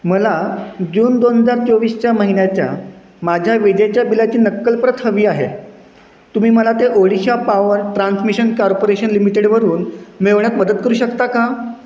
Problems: constant background noise